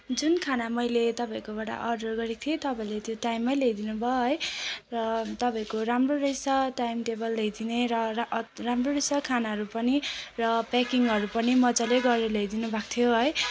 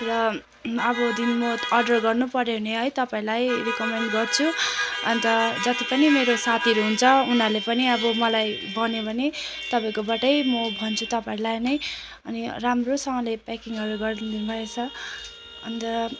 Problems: constant background noise